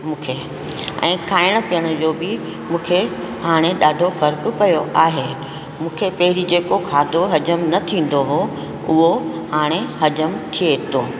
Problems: constant background noise, echo